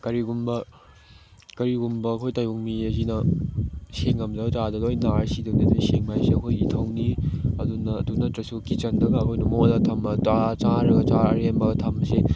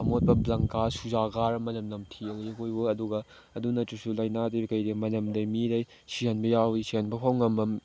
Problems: background sounds at intervals